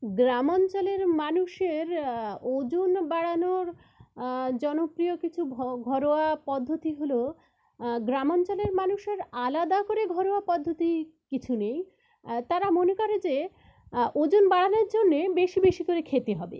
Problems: none marked